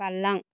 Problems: none marked